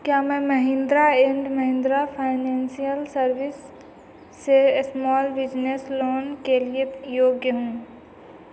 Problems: none marked